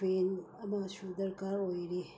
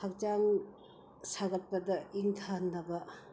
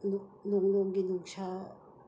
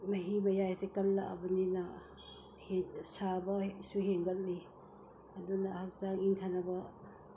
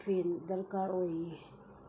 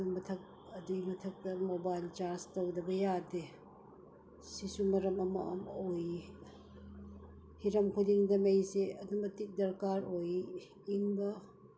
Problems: background sounds at intervals